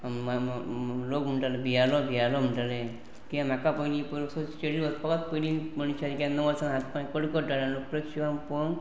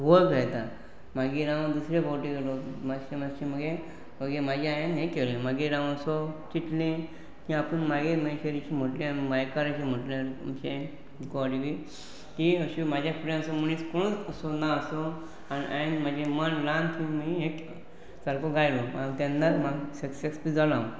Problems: constant background noise